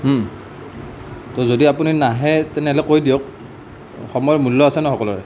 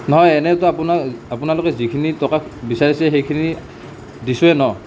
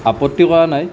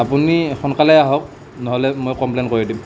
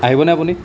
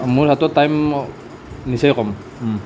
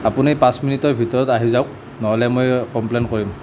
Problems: none marked